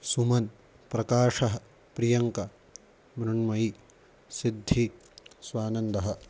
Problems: constant background noise